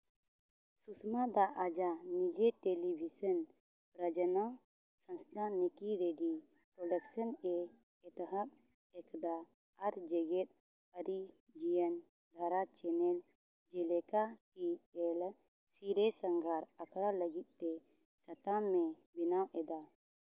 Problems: none marked